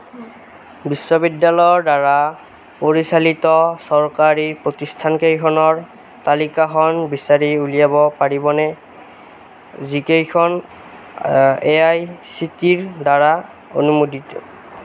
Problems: none marked